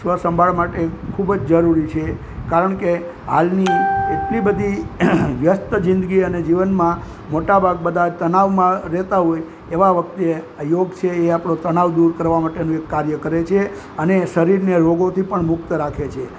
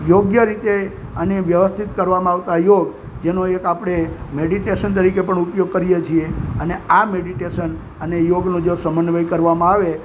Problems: constant background noise